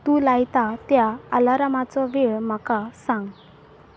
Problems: constant background noise